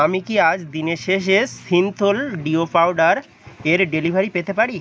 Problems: constant background noise, background conversations at intervals